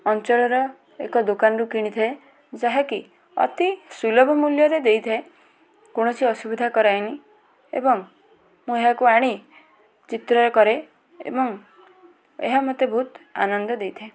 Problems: background conversations at intervals